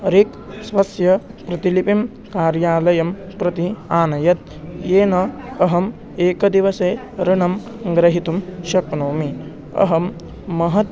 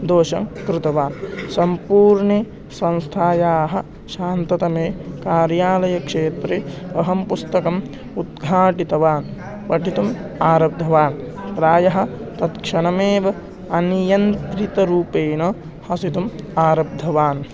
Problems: constant background noise, continuous background conversations